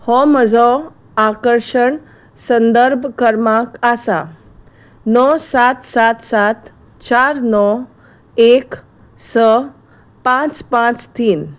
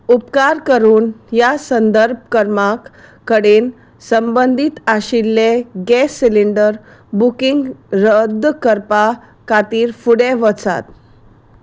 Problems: none marked